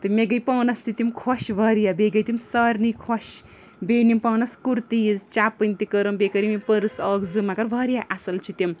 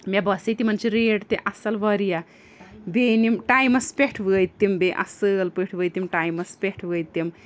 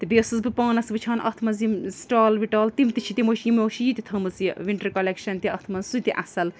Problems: none marked